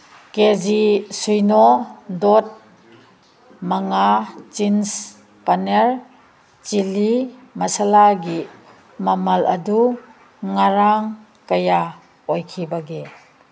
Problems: background sounds at intervals